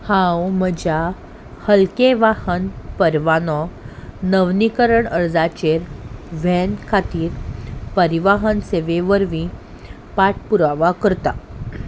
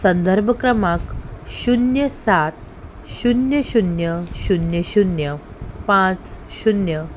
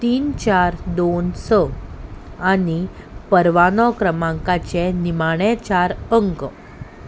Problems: background sounds at intervals